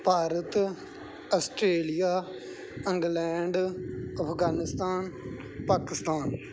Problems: background sounds at intervals